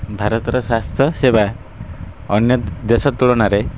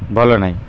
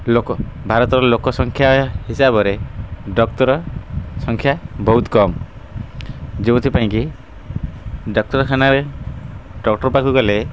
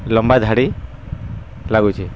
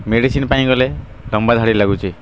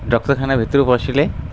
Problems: constant background noise